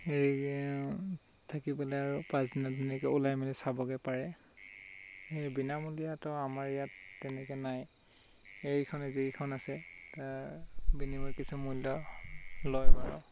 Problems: constant background noise